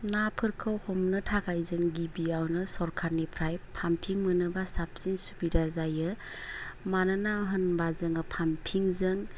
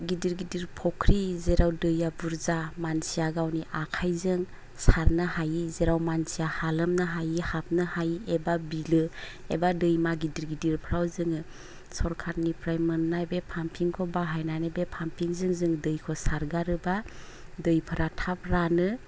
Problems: low volume